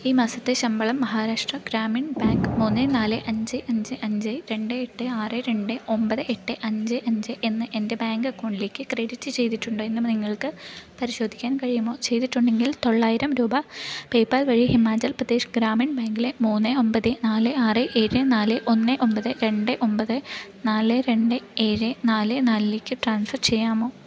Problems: none marked